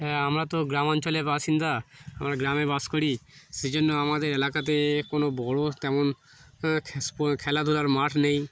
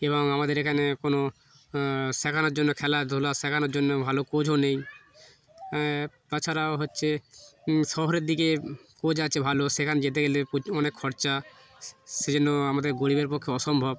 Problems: constant background noise